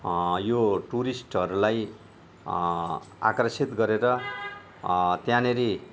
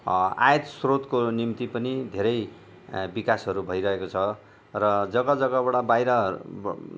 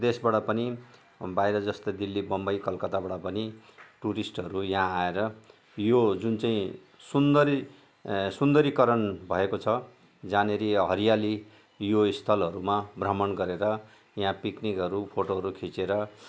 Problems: none marked